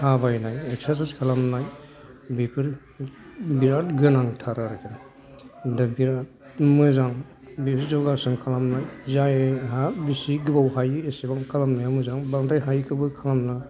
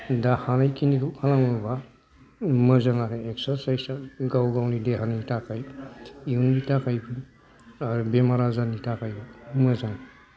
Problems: background sounds at intervals